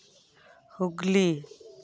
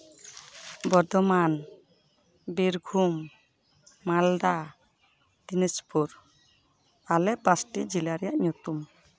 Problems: background sounds at intervals